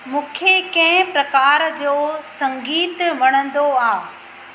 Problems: constant background noise, echo